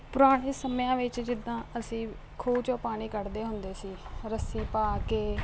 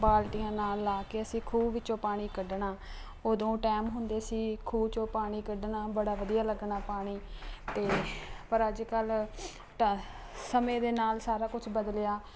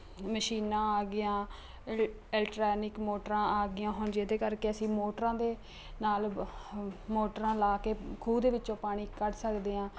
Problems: none marked